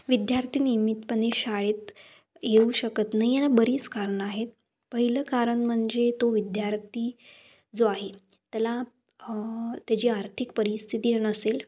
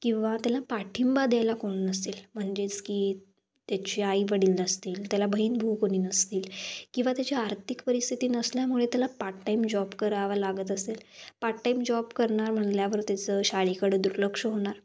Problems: background sounds at intervals